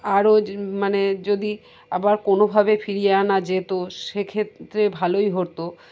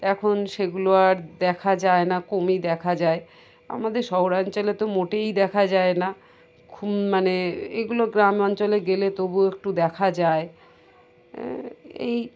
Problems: constant background noise, background conversations at intervals